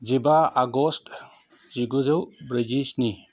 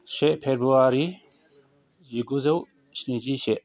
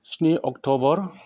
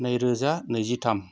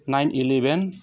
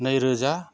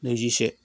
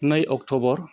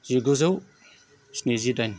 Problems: constant background noise